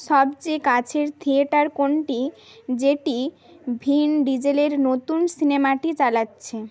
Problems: background sounds at intervals, background conversations at intervals